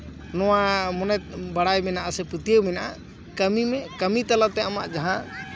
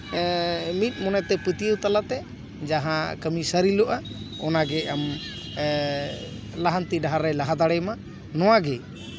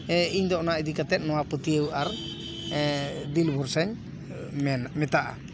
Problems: continuous background conversations